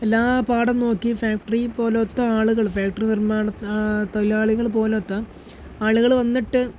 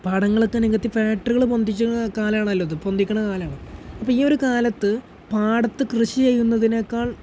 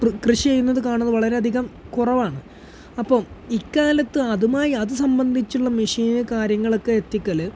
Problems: background sounds at intervals